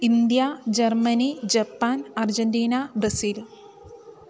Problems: none marked